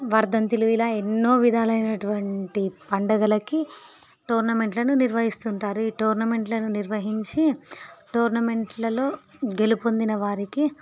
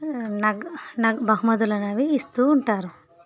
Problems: none marked